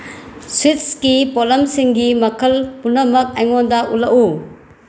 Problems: none marked